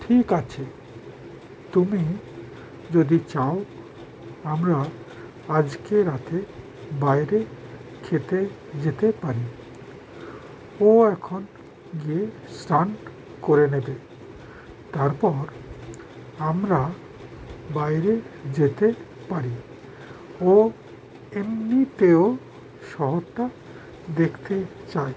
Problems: constant background noise